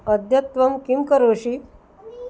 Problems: none marked